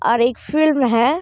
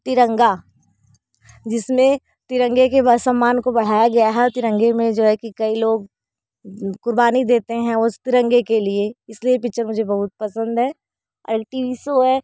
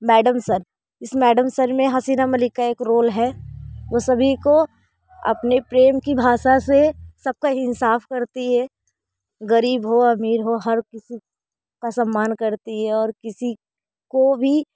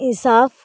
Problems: background sounds at intervals, continuous background conversations